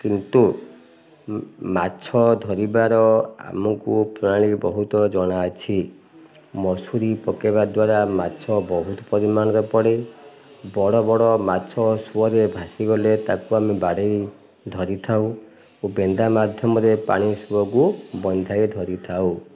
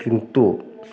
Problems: none marked